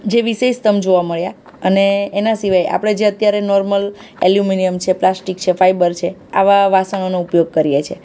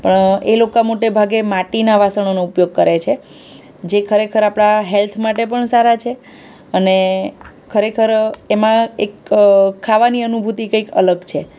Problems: none marked